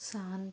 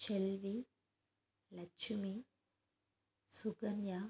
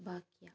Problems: low volume